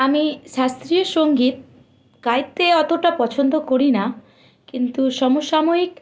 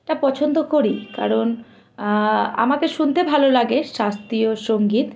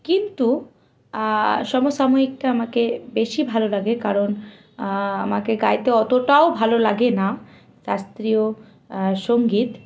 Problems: constant background noise